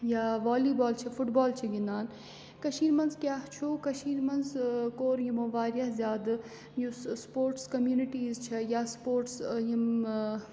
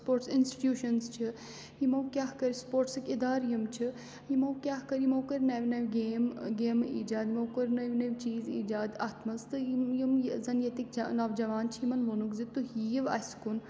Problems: background sounds at intervals